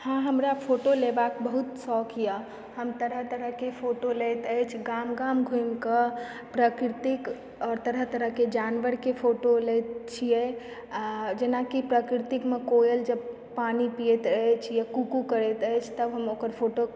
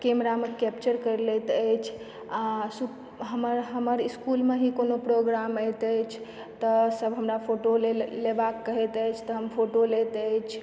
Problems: background sounds at intervals